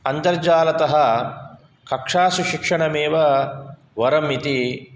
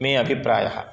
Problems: none marked